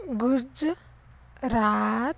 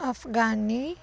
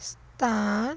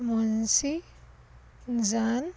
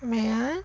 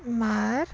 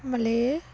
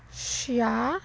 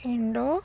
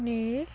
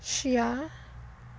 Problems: constant background noise